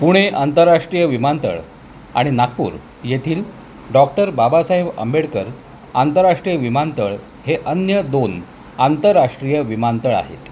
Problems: constant background noise